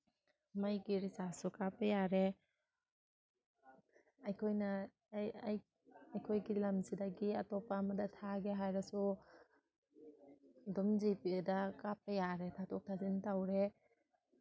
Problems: background sounds at intervals